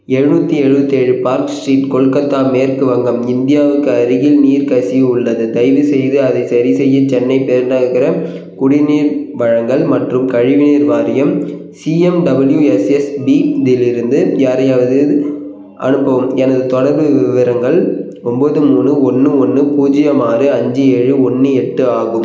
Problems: none marked